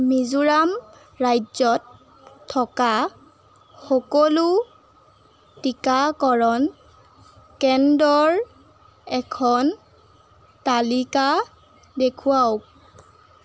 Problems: background sounds at intervals